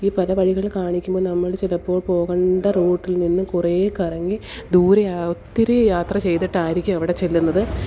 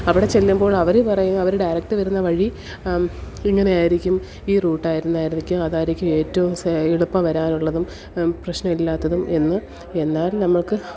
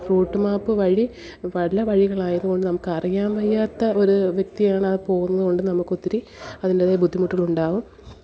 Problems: background sounds at intervals, low volume